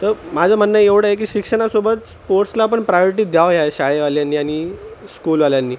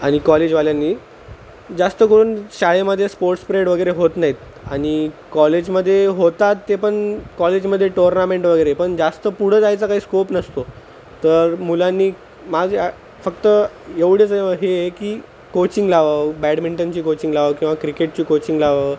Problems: constant background noise